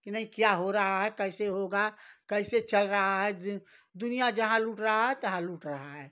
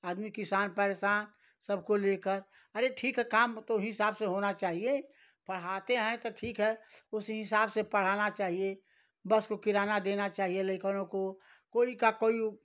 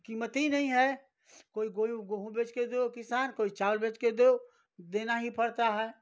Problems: none marked